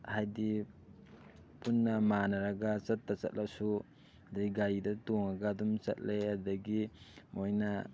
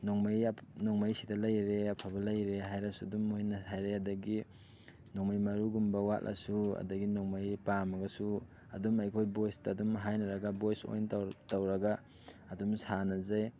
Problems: none marked